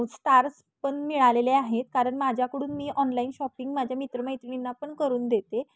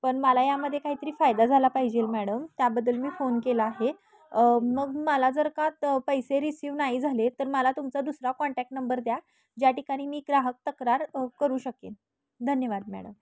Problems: background conversations at intervals